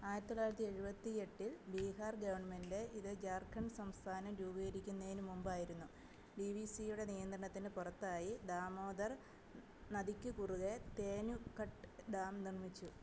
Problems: background sounds at intervals, low volume